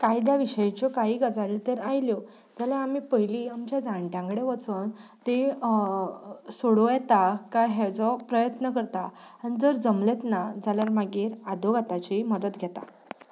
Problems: background sounds at intervals